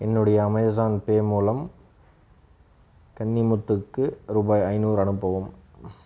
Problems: none marked